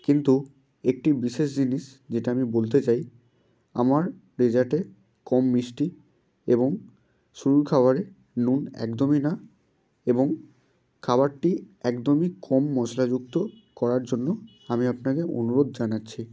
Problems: constant background noise